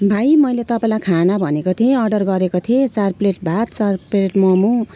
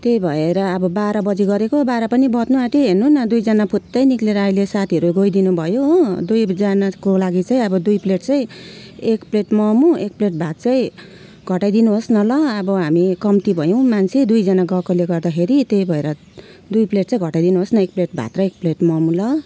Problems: constant background noise